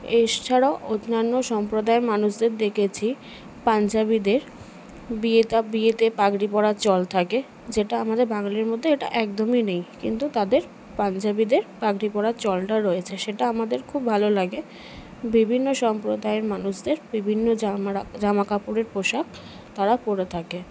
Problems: constant background noise, background conversations at intervals